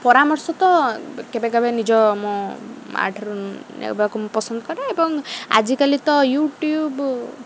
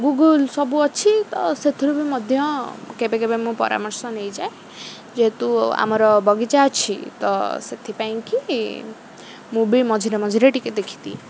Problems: constant background noise